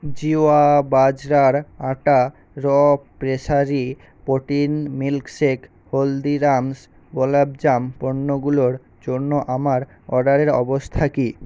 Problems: constant background noise